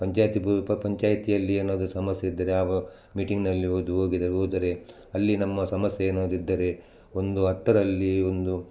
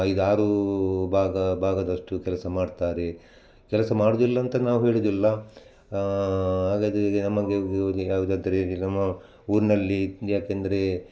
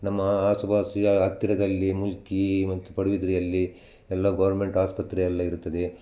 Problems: none marked